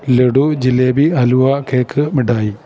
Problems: none marked